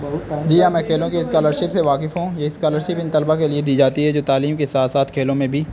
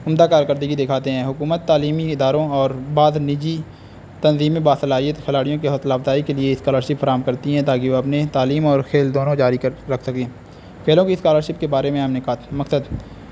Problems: constant background noise